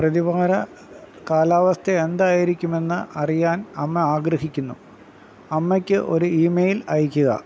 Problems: constant background noise